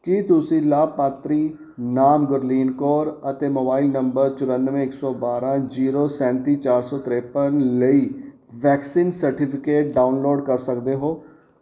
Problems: background sounds at intervals